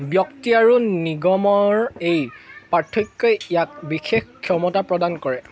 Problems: constant background noise, continuous background conversations